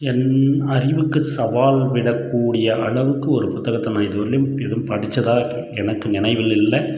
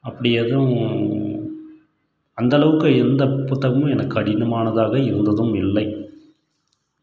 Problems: continuous background conversations